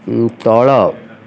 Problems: constant background noise